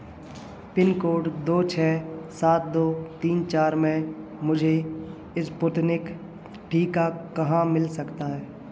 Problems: none marked